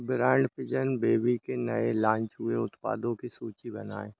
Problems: constant background noise